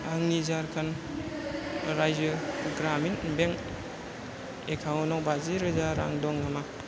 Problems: none marked